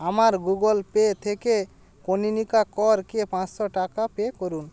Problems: none marked